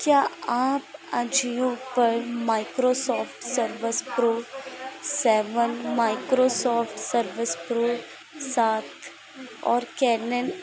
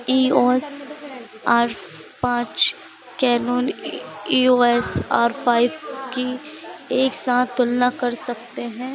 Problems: constant background noise